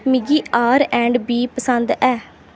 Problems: none marked